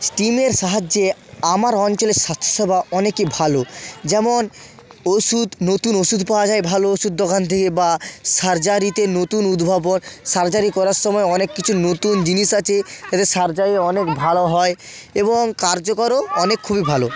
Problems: background sounds at intervals